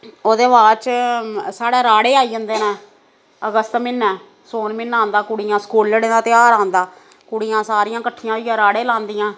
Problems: constant background noise